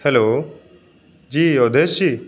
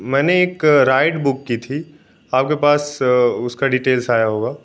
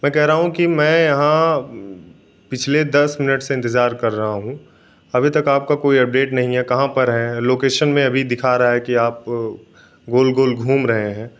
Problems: none marked